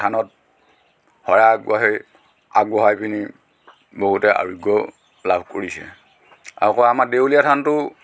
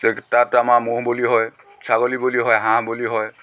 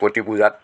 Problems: background sounds at intervals, background conversations at intervals